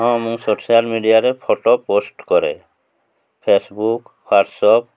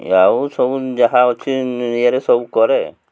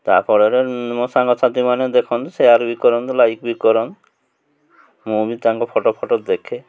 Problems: none marked